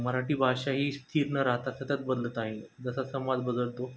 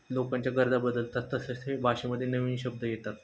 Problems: none marked